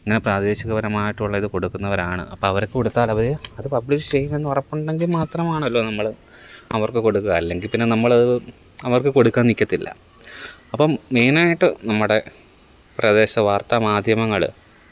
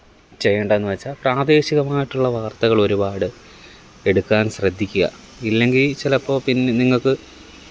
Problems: none marked